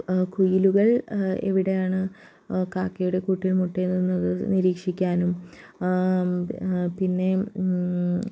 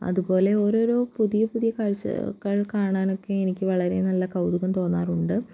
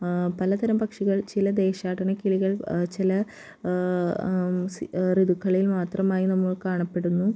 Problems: low volume